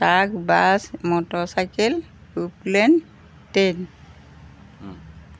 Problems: background sounds at intervals